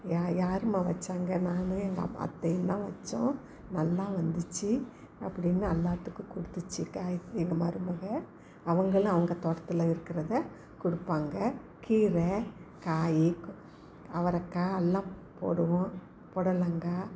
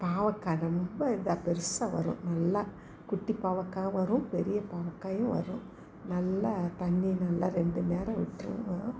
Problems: background conversations at intervals